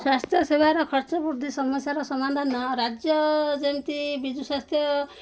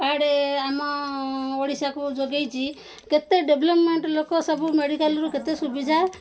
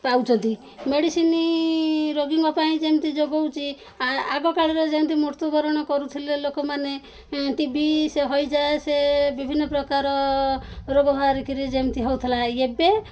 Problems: background sounds at intervals, background conversations at intervals